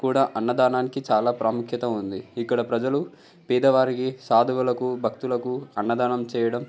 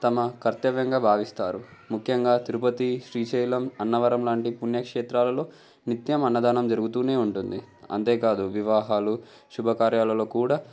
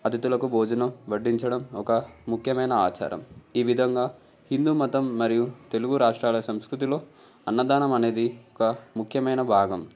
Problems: background conversations at intervals